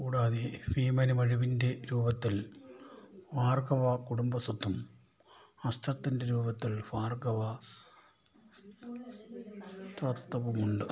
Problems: background conversations at intervals, low volume